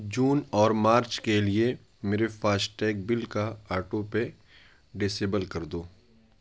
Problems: none marked